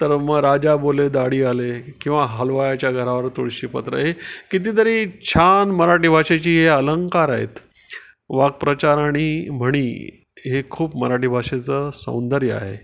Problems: background sounds at intervals